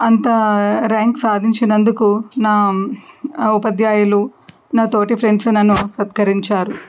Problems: background sounds at intervals